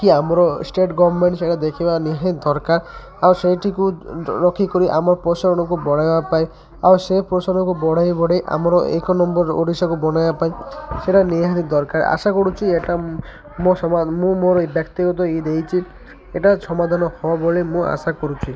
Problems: constant background noise, continuous background conversations